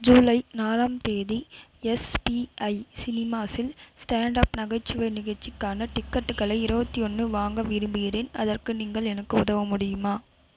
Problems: constant background noise